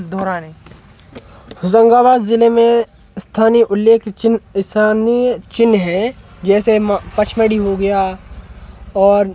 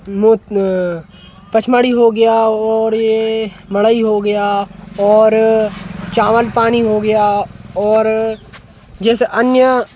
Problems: constant background noise